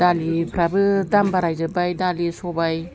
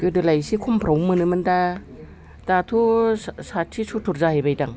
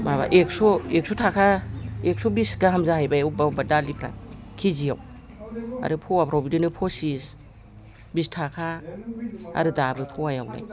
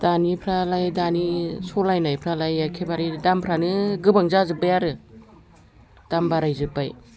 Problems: background conversations at intervals